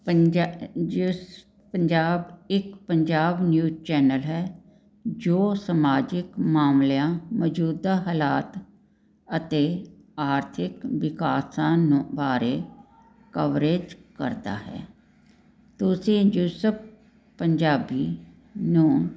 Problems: background sounds at intervals